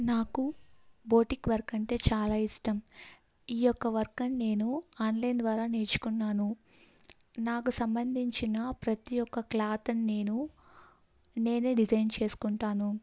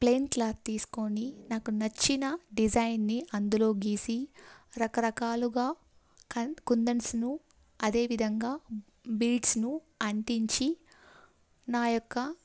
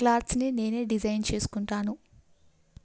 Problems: none marked